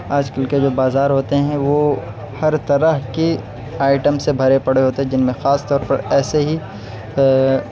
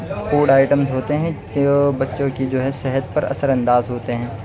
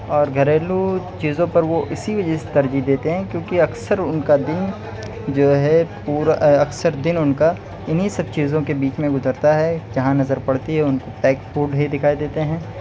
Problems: none marked